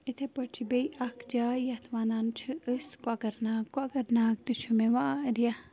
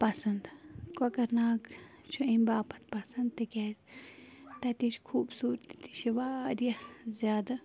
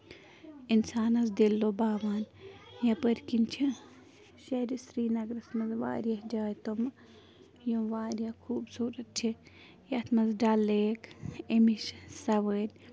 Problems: background sounds at intervals